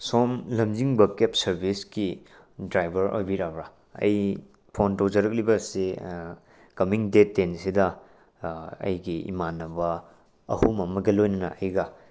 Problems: none marked